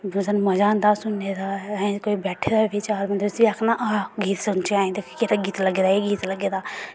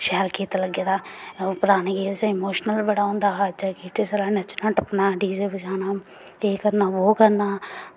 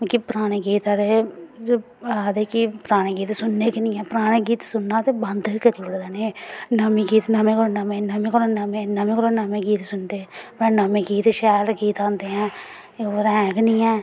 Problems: background sounds at intervals